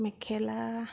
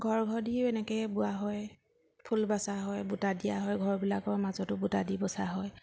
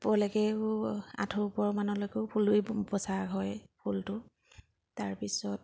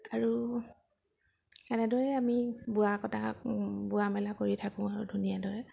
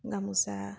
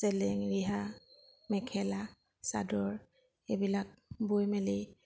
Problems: background sounds at intervals